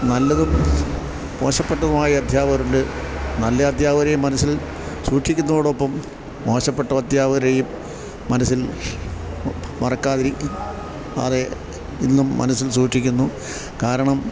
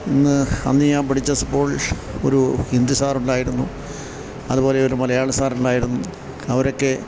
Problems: background sounds at intervals